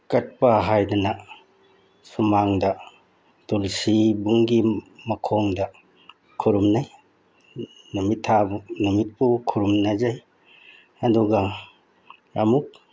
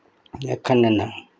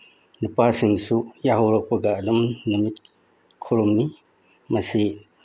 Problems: background sounds at intervals